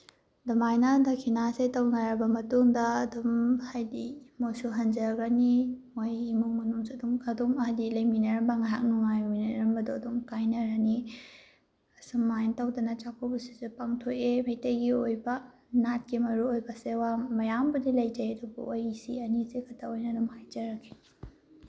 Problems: background sounds at intervals